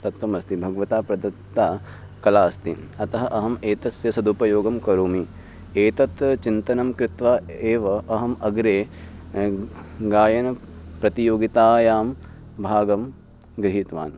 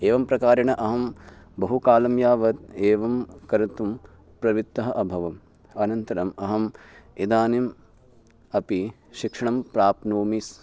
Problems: none marked